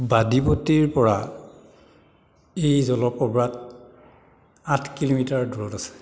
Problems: none marked